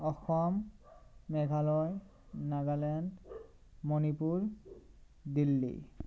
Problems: constant background noise